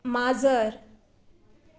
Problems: background sounds at intervals